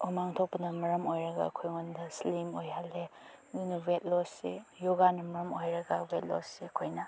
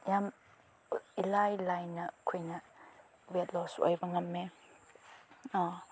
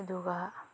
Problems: none marked